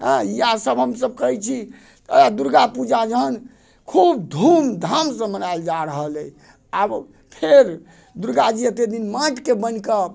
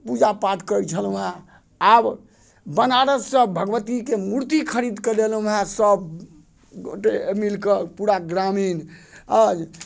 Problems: none marked